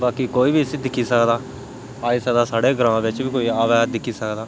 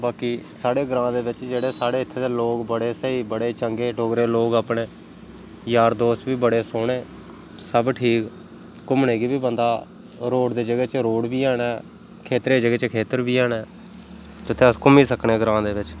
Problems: none marked